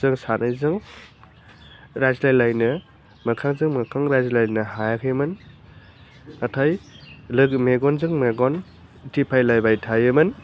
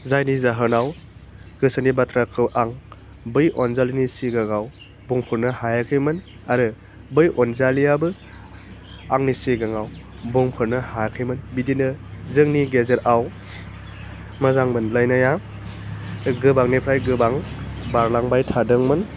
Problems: none marked